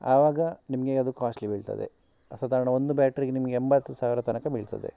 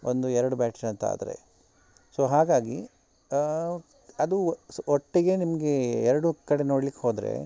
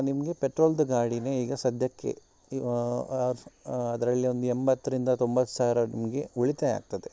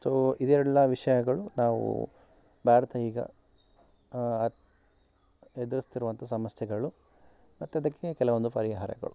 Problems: none marked